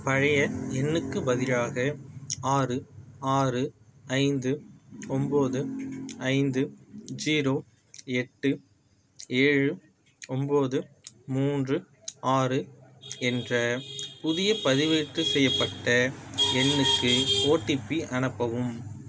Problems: background sounds at intervals